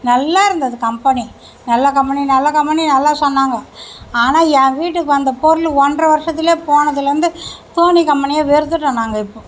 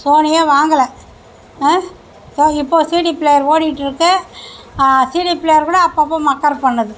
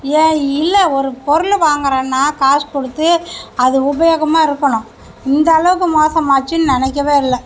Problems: none marked